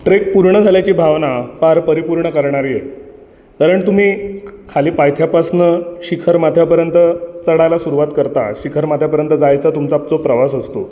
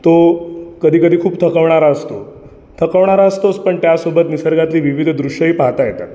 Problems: background sounds at intervals